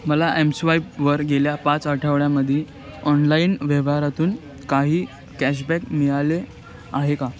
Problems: constant background noise, background conversations at intervals